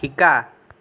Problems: none marked